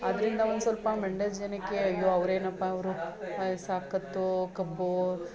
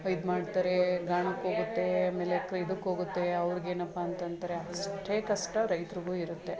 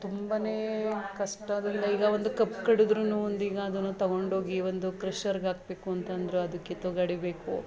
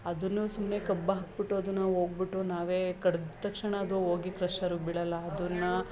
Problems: none marked